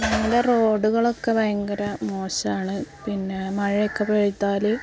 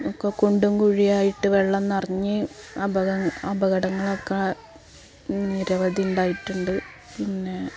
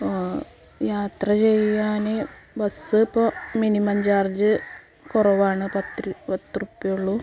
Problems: background sounds at intervals, background conversations at intervals